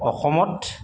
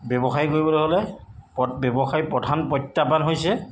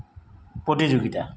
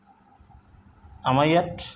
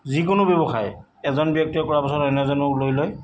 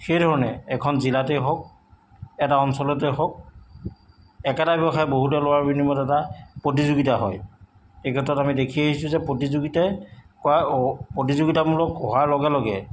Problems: background sounds at intervals